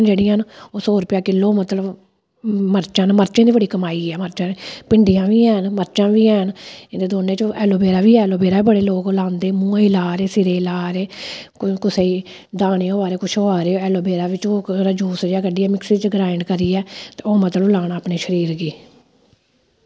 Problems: none marked